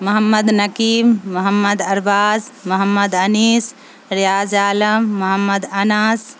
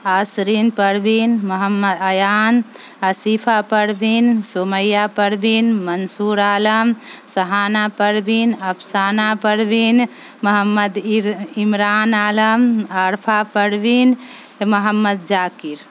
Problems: constant background noise